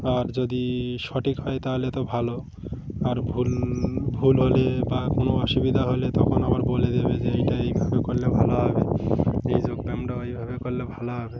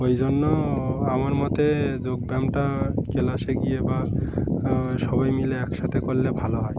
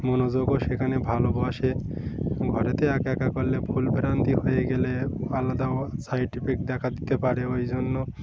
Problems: constant background noise